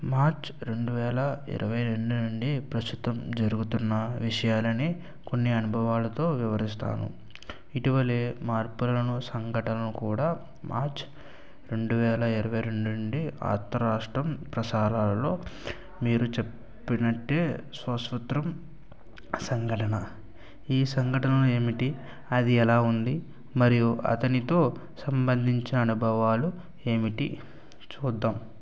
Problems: none marked